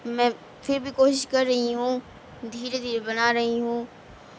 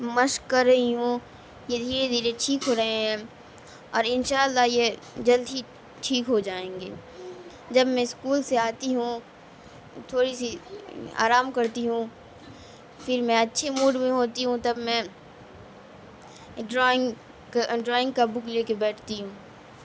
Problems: constant background noise